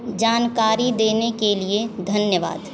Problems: constant background noise